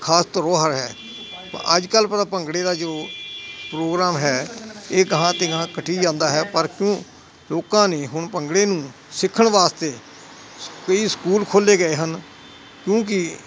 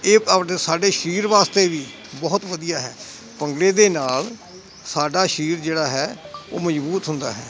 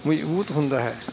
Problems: constant background noise